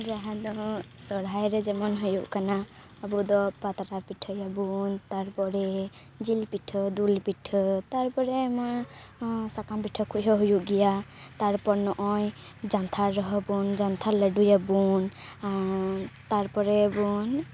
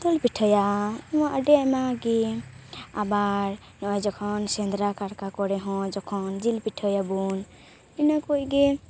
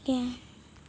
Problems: none marked